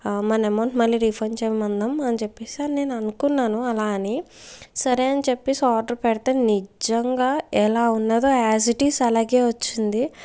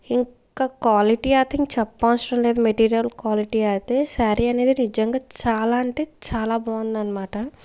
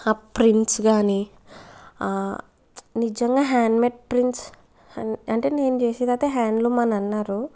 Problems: background sounds at intervals